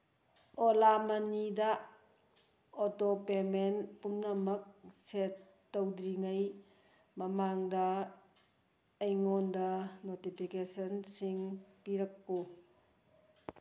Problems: none marked